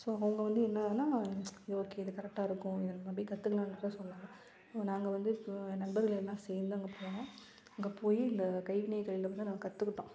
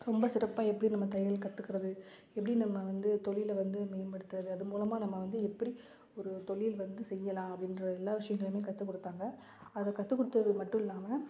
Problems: none marked